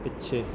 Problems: background sounds at intervals